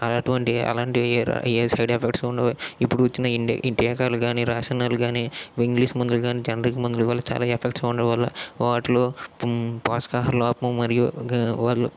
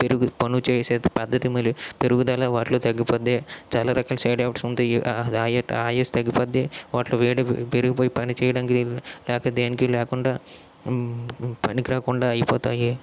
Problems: none marked